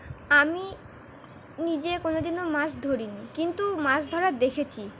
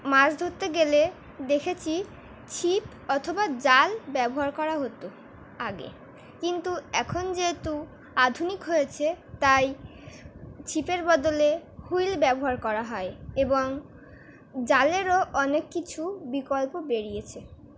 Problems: none marked